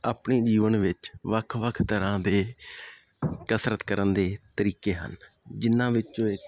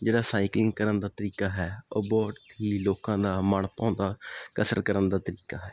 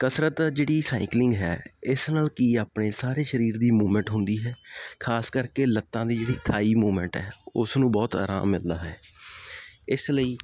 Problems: constant background noise